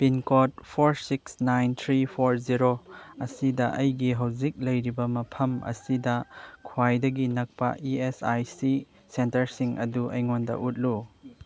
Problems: none marked